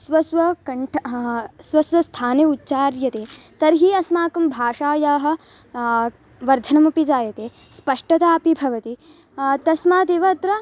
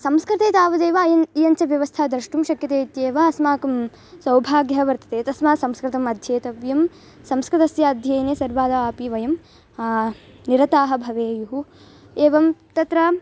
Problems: constant background noise